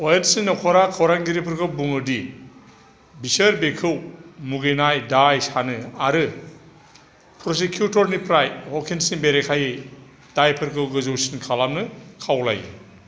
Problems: constant background noise